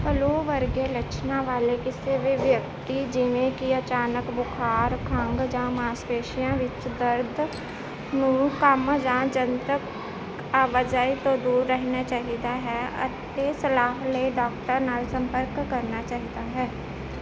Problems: constant background noise